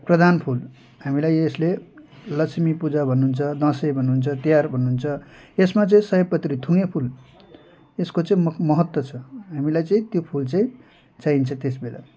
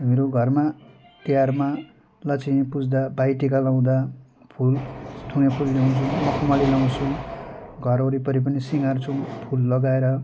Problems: background sounds at intervals